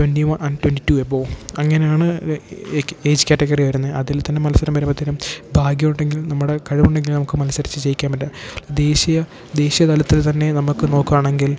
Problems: background sounds at intervals